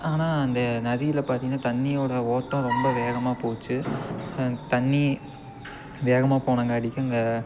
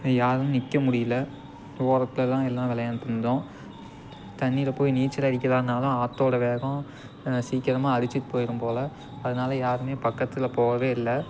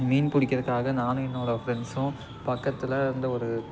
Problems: constant background noise